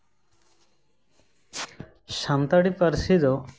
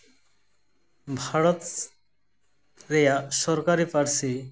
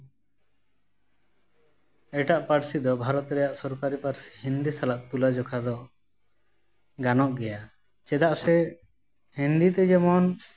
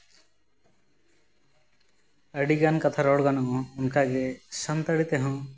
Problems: constant background noise, echo